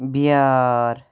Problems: none marked